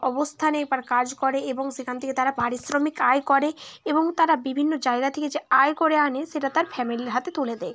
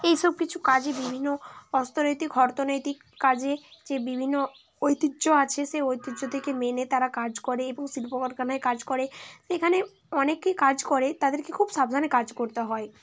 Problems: constant background noise, background conversations at intervals